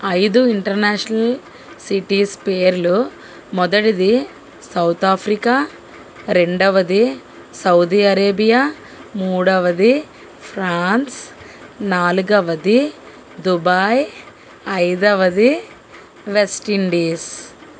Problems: constant background noise